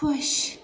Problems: none marked